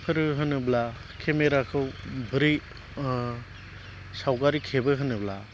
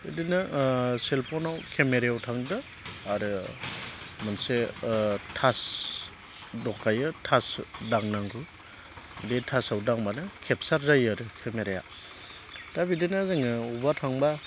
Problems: none marked